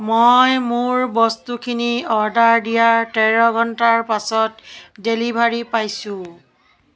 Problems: none marked